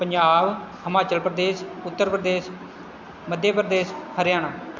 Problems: constant background noise